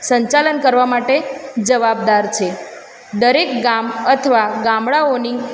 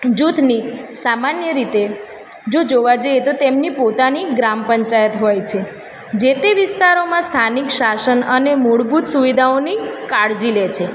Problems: constant background noise